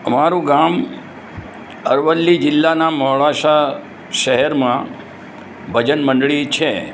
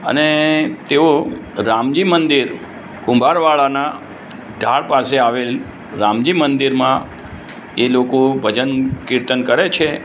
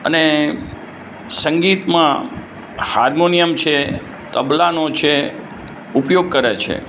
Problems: background sounds at intervals